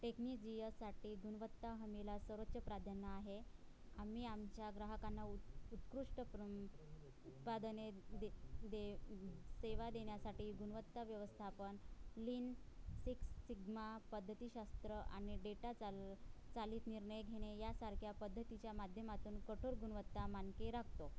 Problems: background sounds at intervals, low volume